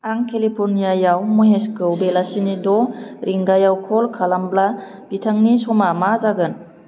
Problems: none marked